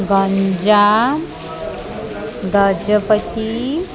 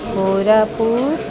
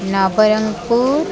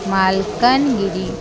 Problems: constant background noise